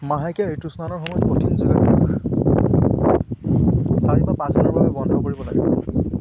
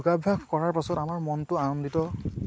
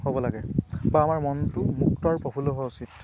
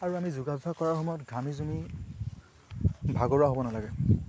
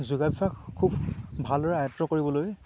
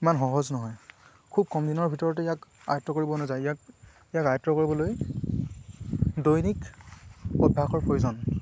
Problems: constant background noise